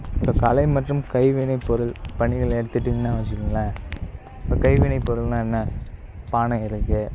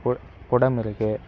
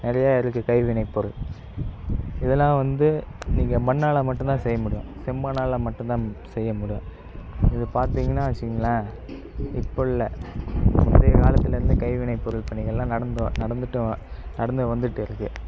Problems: constant background noise